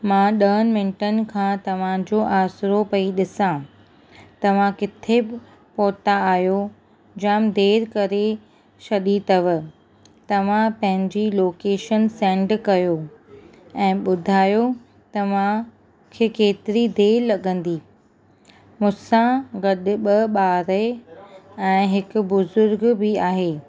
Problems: constant background noise